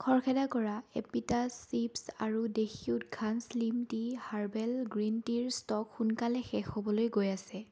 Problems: none marked